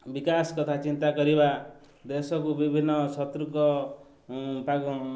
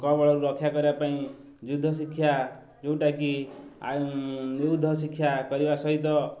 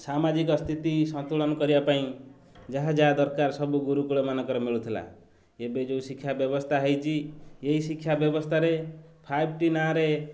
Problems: none marked